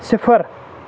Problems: constant background noise